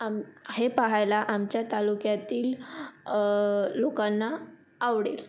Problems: background sounds at intervals